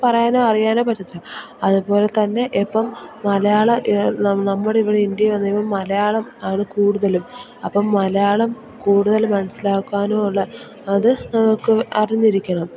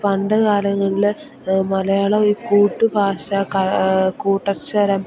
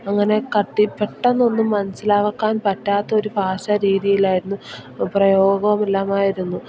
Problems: none marked